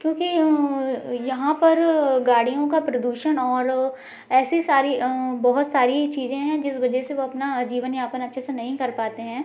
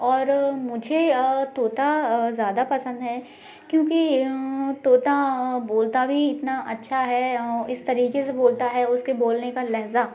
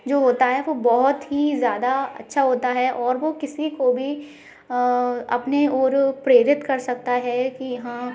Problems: none marked